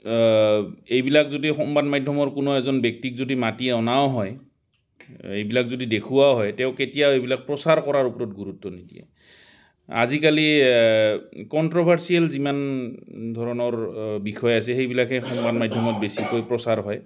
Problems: constant background noise